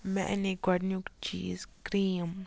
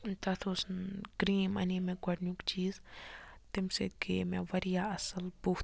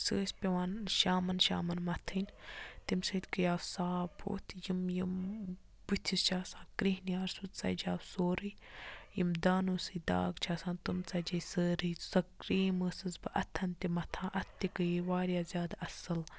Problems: none marked